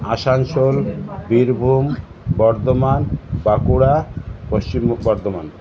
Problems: constant background noise, background conversations at intervals